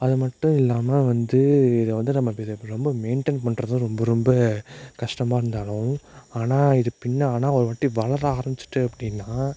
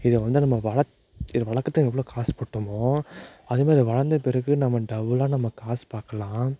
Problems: none marked